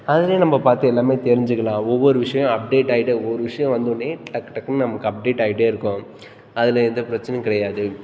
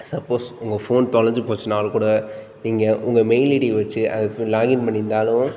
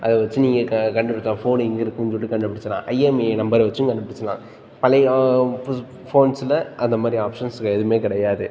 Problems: constant background noise